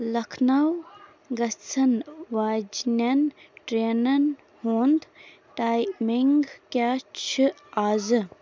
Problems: constant background noise